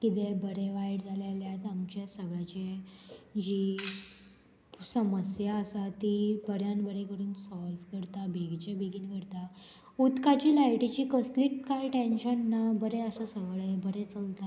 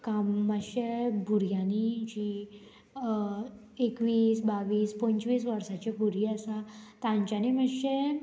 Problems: constant background noise